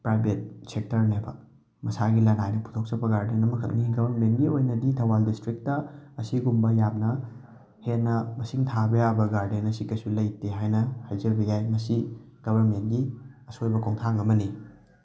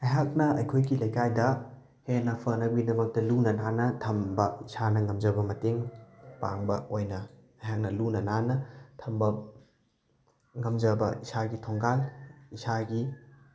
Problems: background sounds at intervals